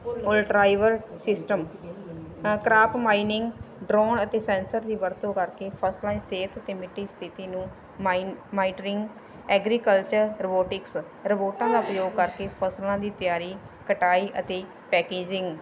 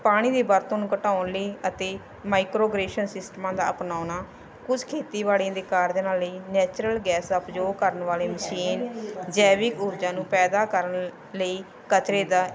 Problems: none marked